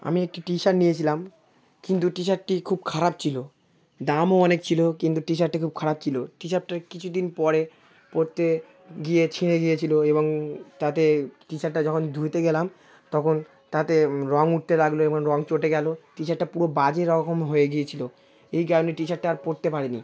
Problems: continuous background conversations